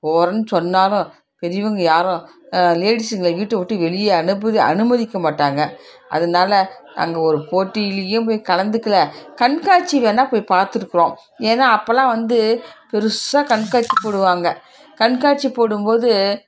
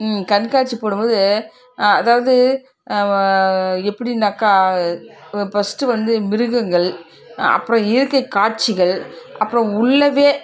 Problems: background sounds at intervals, background conversations at intervals